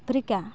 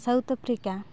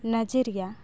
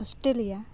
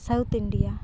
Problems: background sounds at intervals